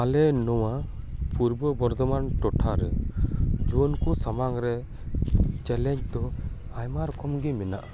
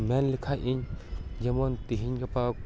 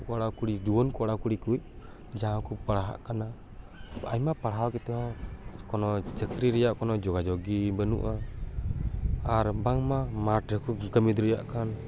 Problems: background conversations at intervals